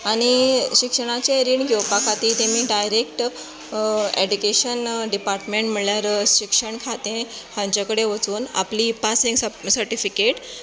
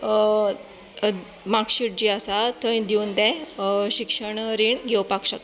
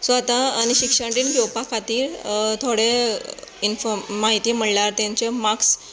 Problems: none marked